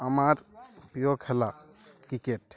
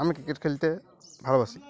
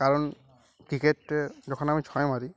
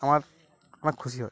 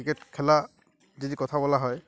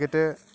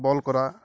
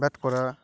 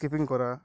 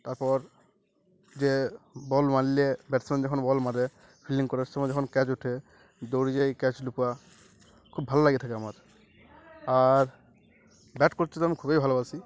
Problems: constant background noise, continuous background conversations